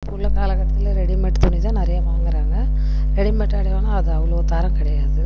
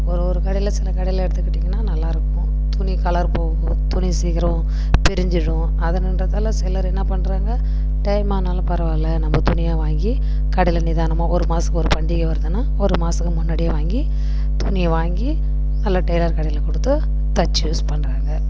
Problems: constant background noise